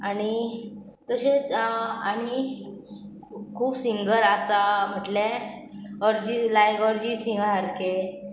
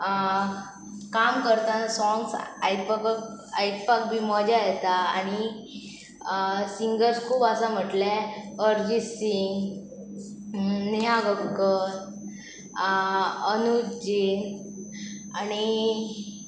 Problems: none marked